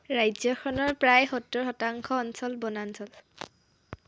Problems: none marked